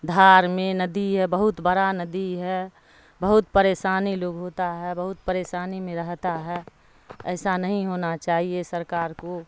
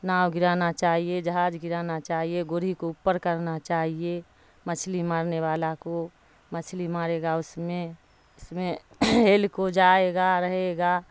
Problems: constant background noise